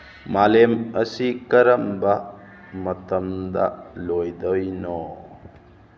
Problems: none marked